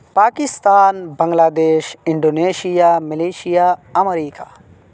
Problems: none marked